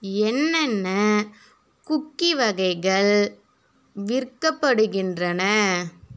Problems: none marked